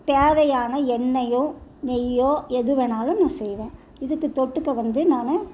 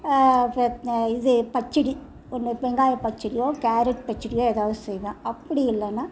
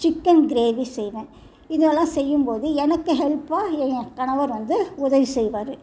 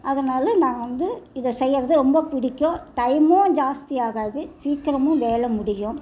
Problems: constant background noise